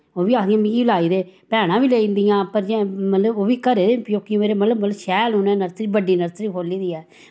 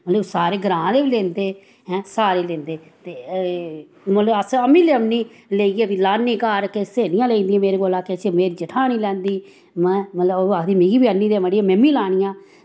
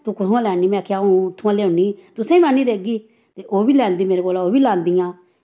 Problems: none marked